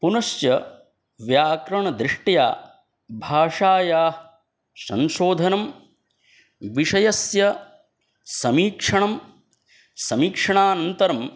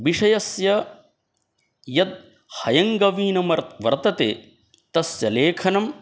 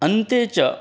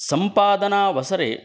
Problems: none marked